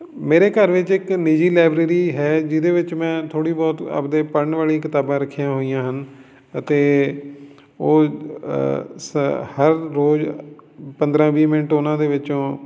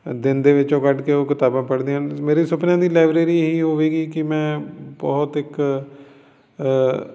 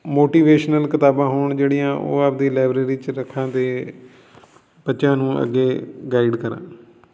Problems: none marked